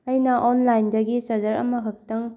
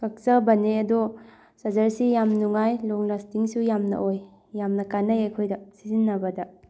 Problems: none marked